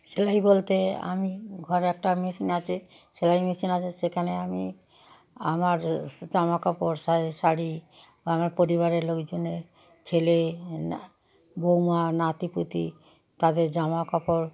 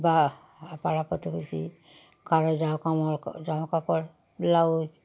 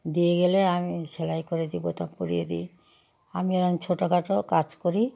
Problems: background sounds at intervals, background conversations at intervals